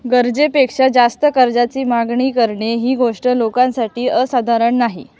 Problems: background sounds at intervals